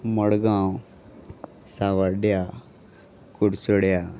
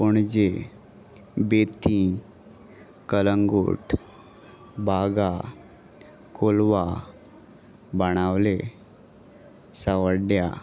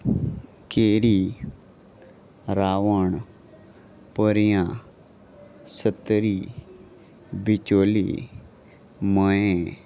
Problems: constant background noise, continuous background conversations